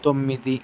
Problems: constant background noise